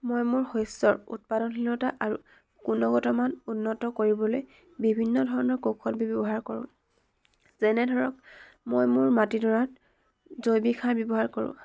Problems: none marked